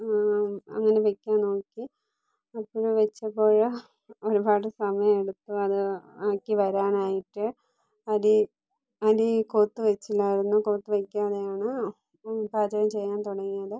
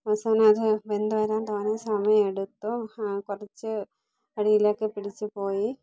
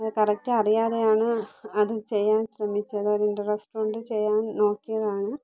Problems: low volume